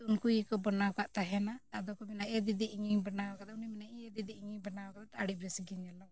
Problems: none marked